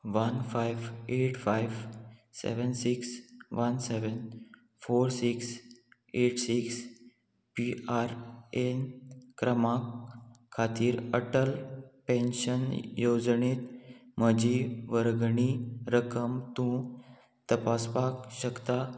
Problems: constant background noise